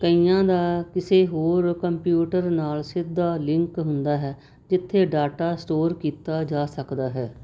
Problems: constant background noise